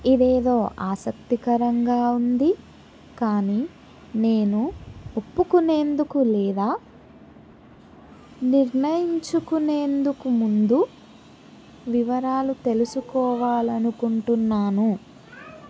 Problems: constant background noise, background conversations at intervals